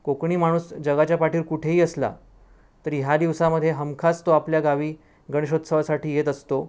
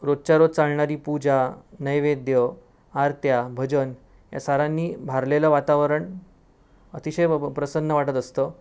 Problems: none marked